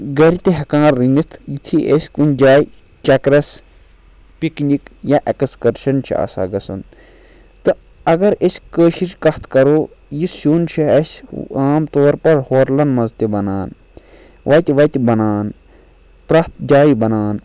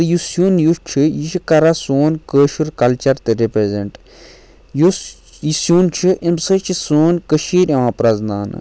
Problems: none marked